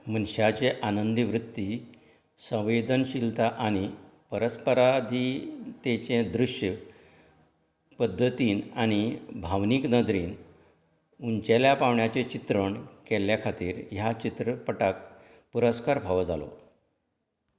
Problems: background sounds at intervals